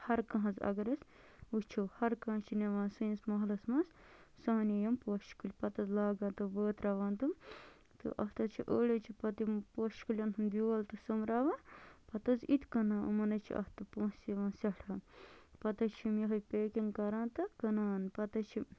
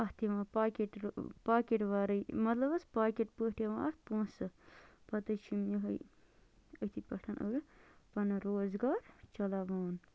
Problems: low volume